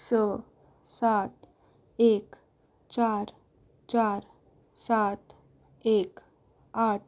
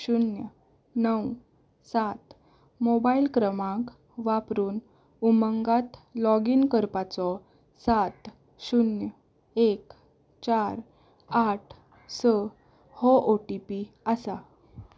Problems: background sounds at intervals